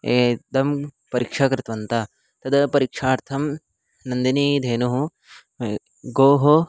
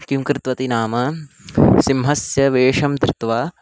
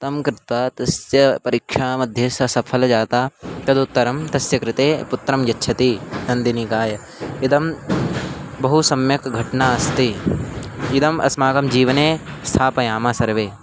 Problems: constant background noise